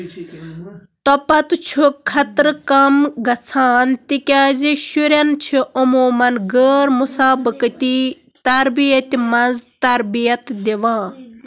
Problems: constant background noise